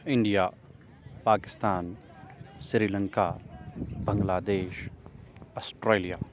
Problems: constant background noise